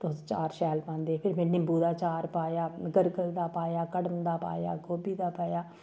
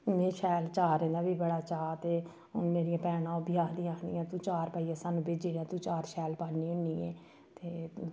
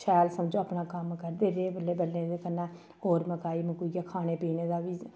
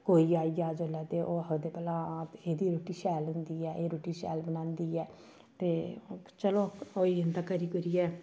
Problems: low volume